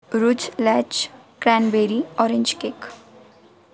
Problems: constant background noise